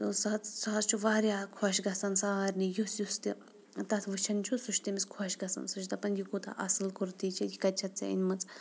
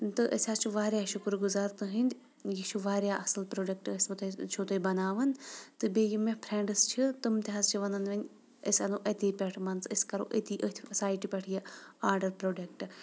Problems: background sounds at intervals